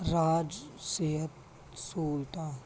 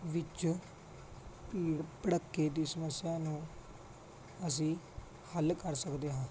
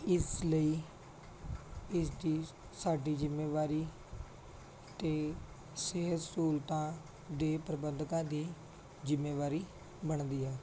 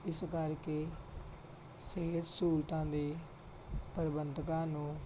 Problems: none marked